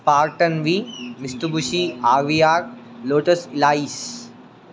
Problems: constant background noise